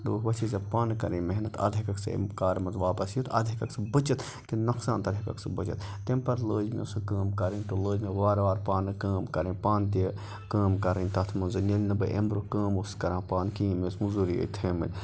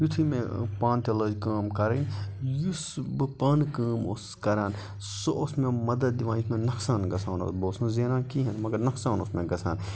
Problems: constant background noise, background conversations at intervals